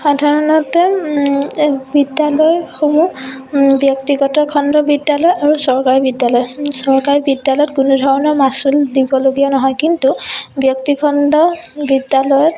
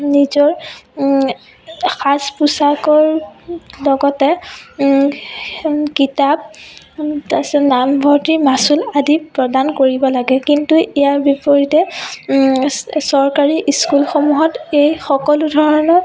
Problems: background sounds at intervals, background conversations at intervals